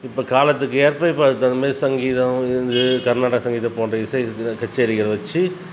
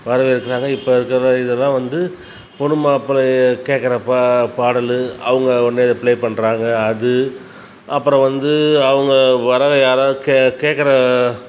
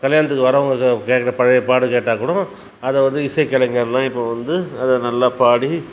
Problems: none marked